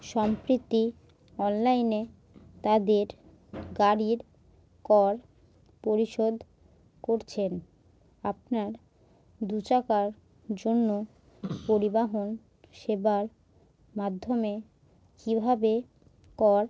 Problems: background sounds at intervals